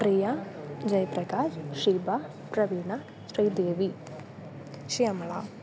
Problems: constant background noise